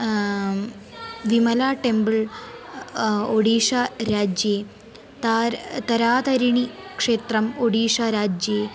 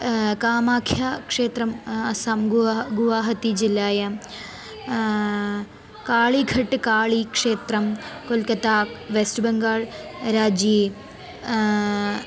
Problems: none marked